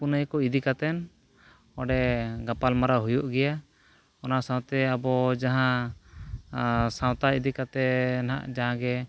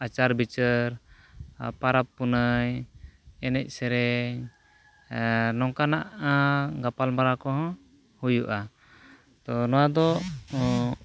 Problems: none marked